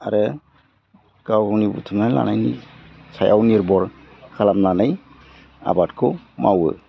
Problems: low volume